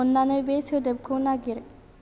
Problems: constant background noise